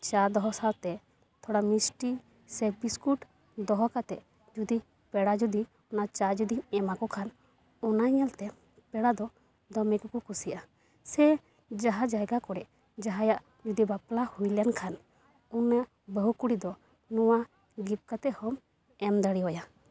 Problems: none marked